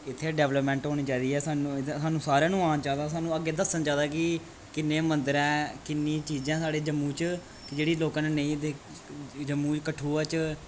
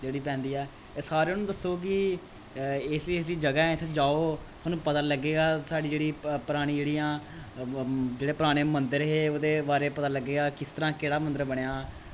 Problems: constant background noise